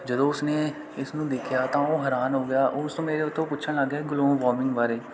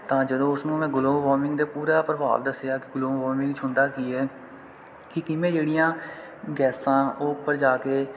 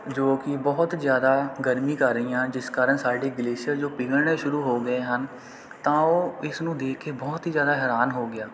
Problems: none marked